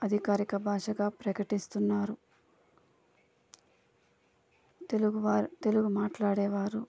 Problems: constant background noise, low volume